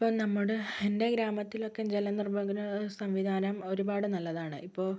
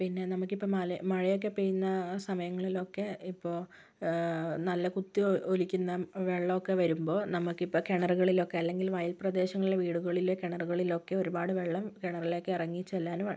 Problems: low volume